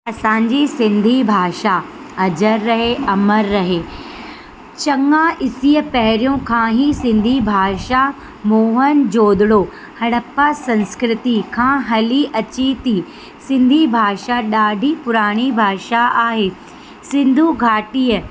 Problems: constant background noise, echo